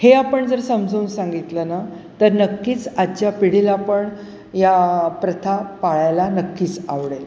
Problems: none marked